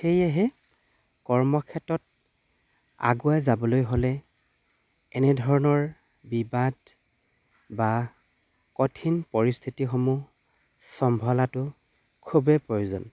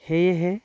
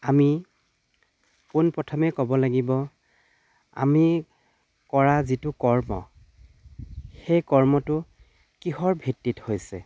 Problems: constant background noise, background conversations at intervals